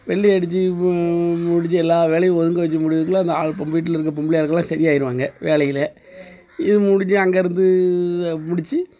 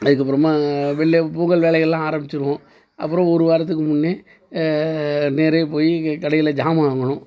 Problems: constant background noise